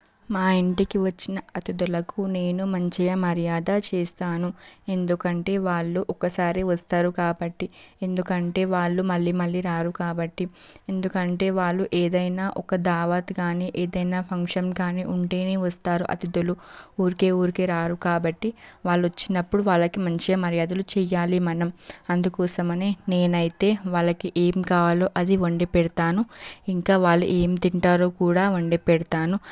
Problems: background sounds at intervals